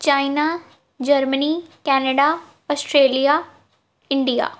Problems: background sounds at intervals